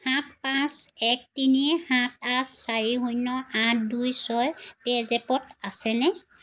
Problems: constant background noise